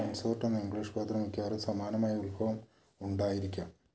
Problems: low volume